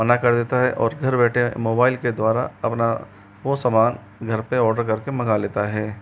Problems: constant background noise